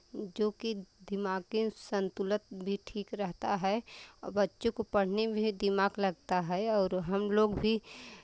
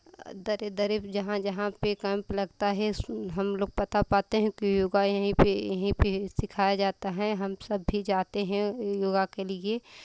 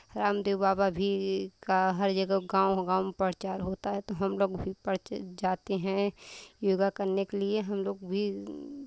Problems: constant background noise